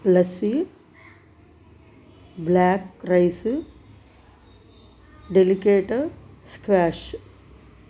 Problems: none marked